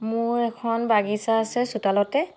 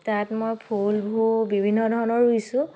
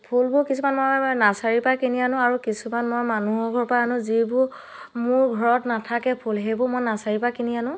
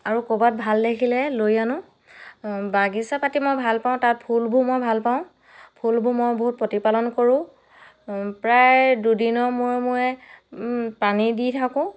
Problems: background sounds at intervals